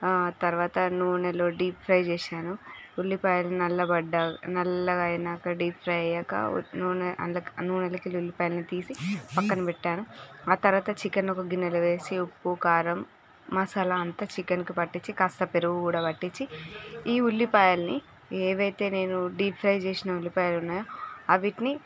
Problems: background sounds at intervals